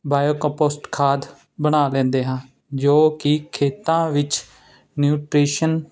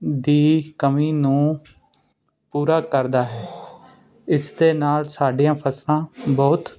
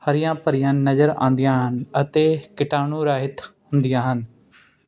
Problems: none marked